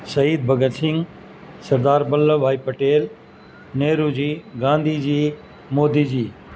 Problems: constant background noise